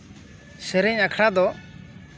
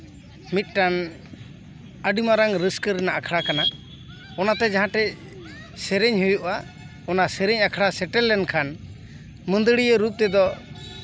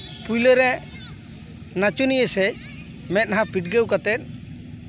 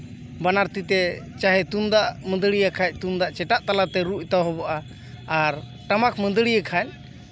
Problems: continuous background conversations